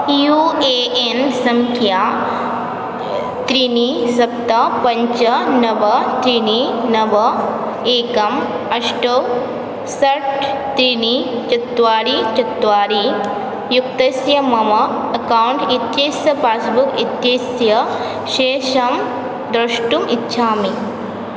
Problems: constant background noise